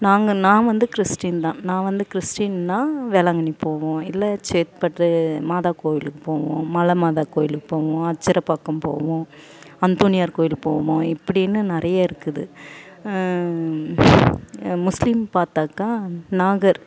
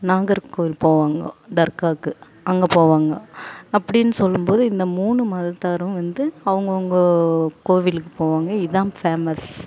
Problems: background sounds at intervals